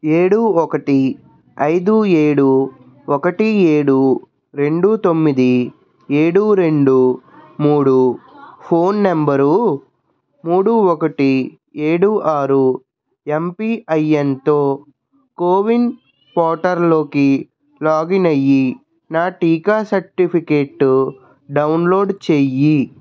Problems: constant background noise, background conversations at intervals